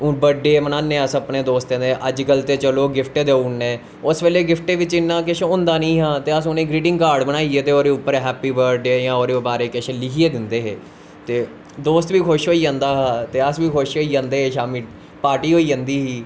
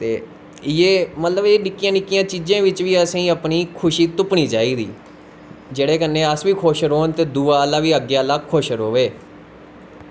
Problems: constant background noise